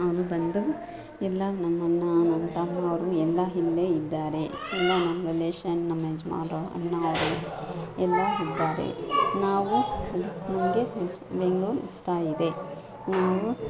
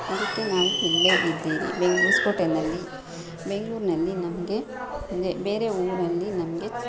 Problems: background sounds at intervals, background conversations at intervals